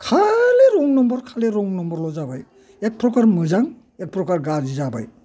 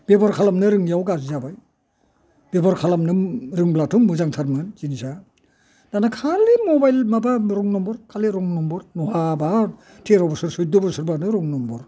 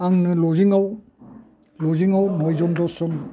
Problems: constant background noise